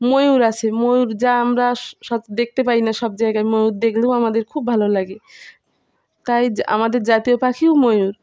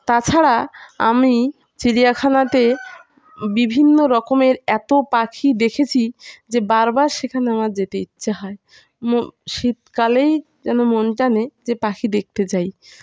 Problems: constant background noise